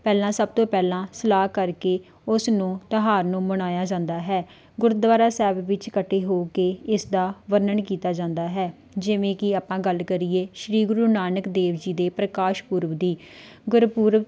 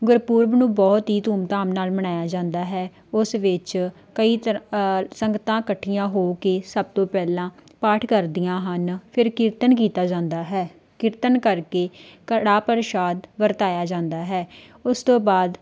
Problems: none marked